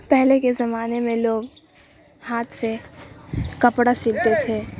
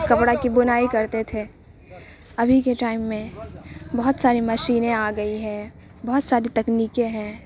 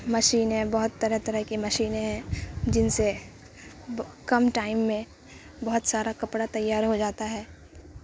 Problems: constant background noise